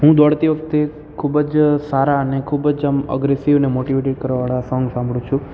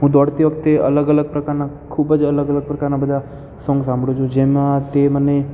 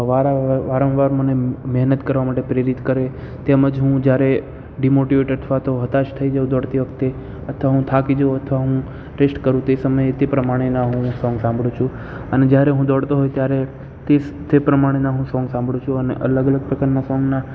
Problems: constant background noise